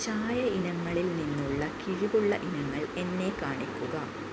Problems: constant background noise